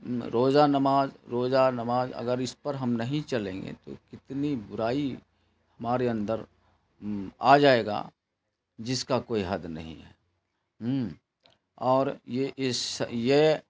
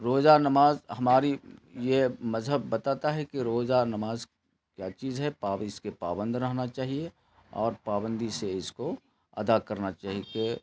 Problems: constant background noise